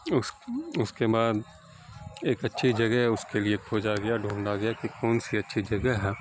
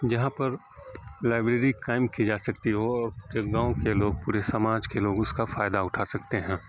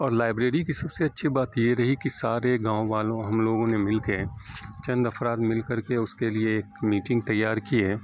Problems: constant background noise